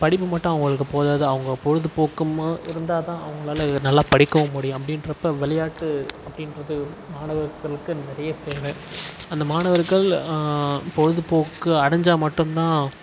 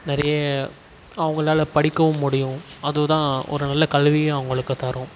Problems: constant background noise